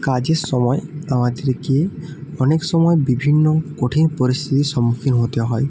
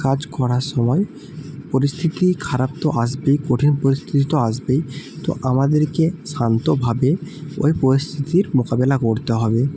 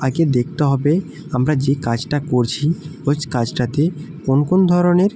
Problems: constant background noise